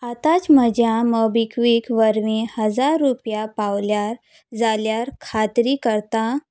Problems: background sounds at intervals